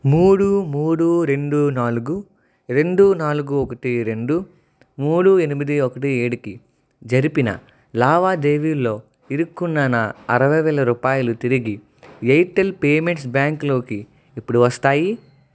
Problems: none marked